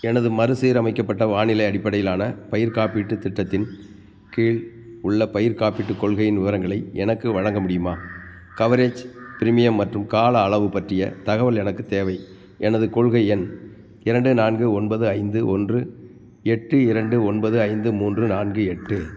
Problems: background sounds at intervals